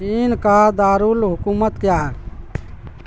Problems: constant background noise